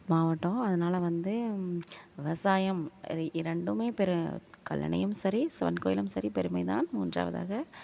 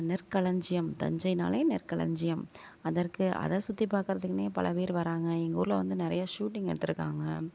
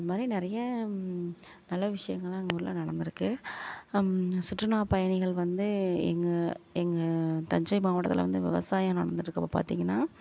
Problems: background sounds at intervals